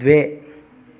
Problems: background sounds at intervals